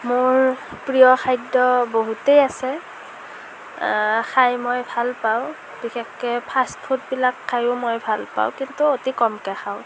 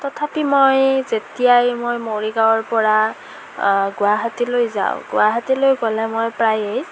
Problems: constant background noise